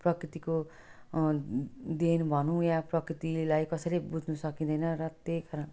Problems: none marked